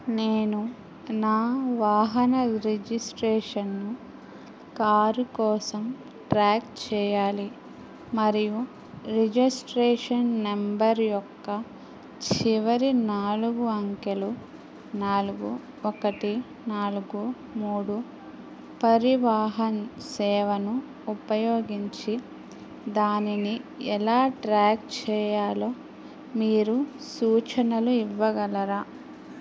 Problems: none marked